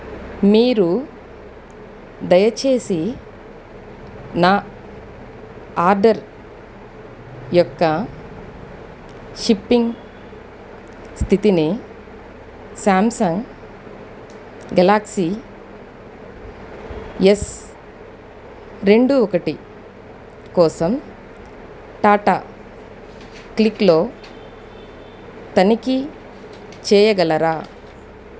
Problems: none marked